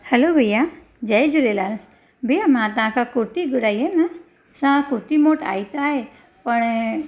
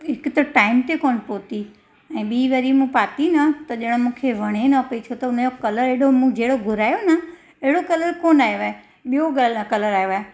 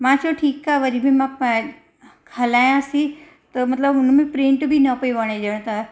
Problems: constant background noise, echo